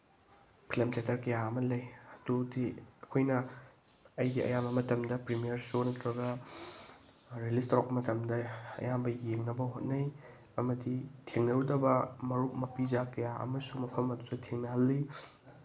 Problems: background sounds at intervals